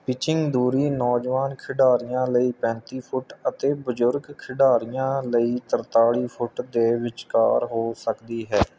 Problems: none marked